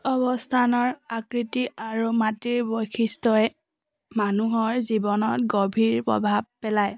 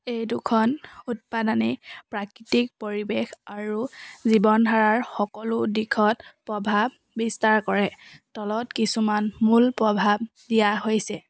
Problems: none marked